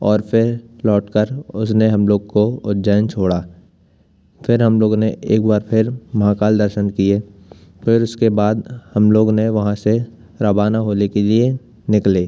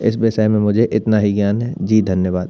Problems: constant background noise